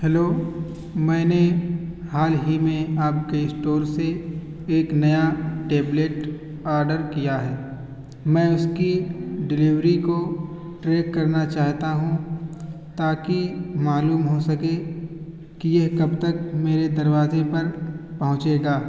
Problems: constant background noise